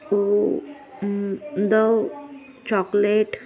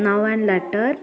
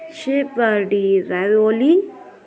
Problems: continuous background conversations